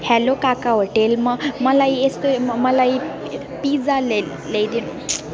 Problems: constant background noise